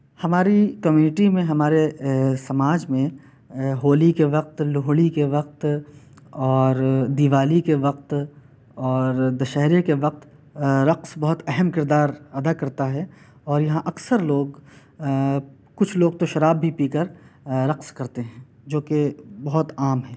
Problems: constant background noise